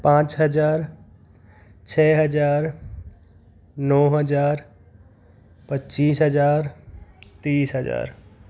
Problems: background sounds at intervals